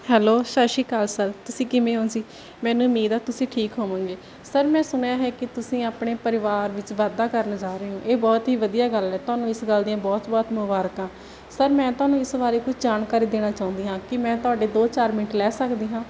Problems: none marked